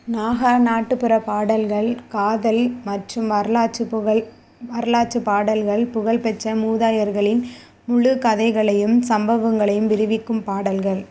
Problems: none marked